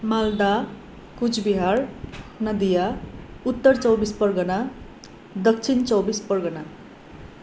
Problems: constant background noise